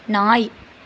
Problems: none marked